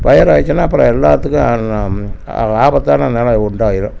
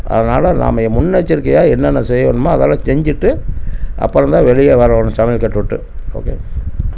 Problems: none marked